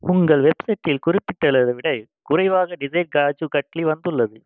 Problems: background sounds at intervals